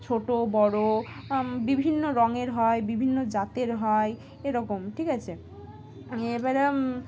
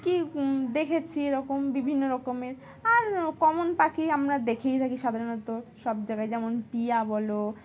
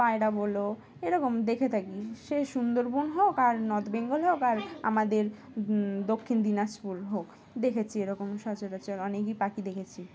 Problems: constant background noise, background conversations at intervals